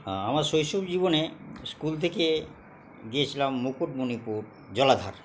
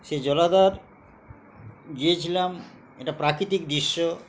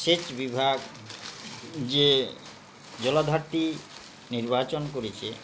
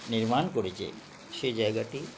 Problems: none marked